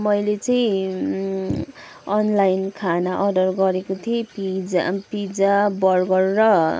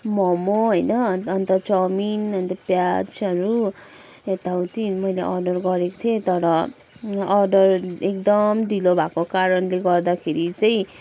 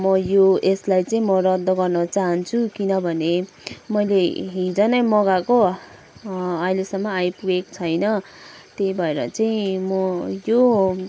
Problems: background sounds at intervals